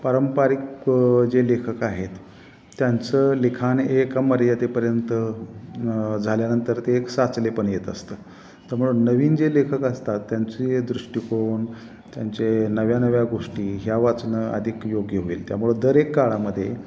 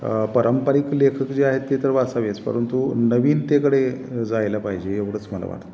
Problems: constant background noise